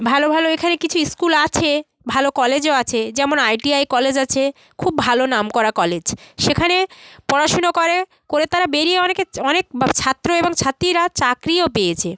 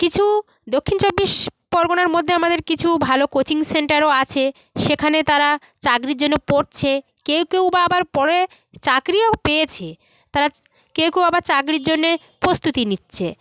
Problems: constant background noise, continuous background conversations